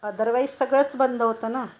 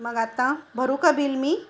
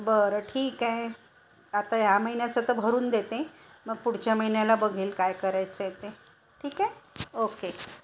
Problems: constant background noise, continuous background conversations